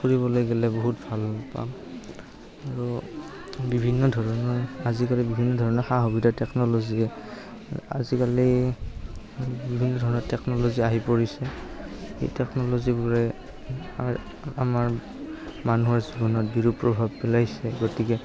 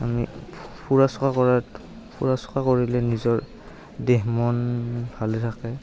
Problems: background sounds at intervals, continuous background conversations